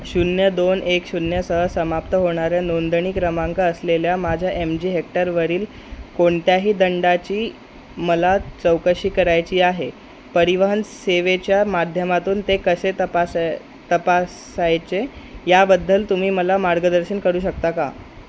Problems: constant background noise